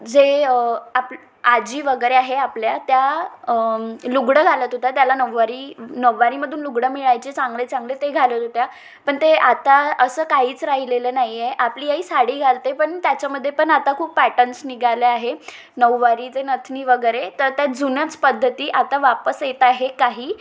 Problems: constant background noise, background conversations at intervals, echo